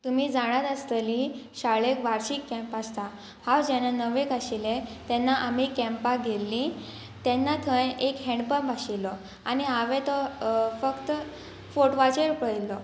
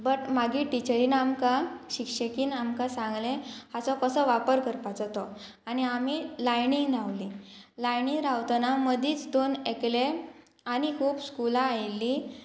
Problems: constant background noise